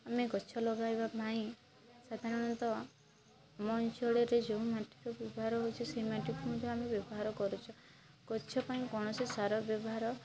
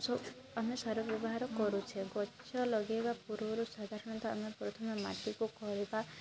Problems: constant background noise, continuous background conversations